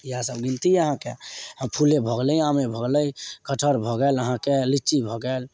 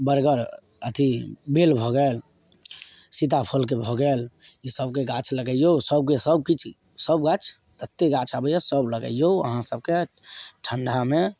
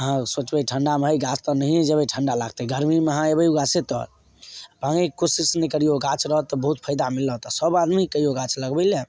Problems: none marked